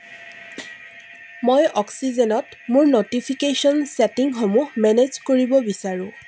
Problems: constant background noise